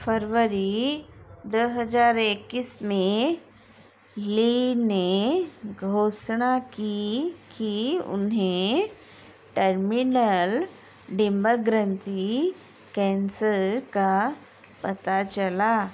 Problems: constant background noise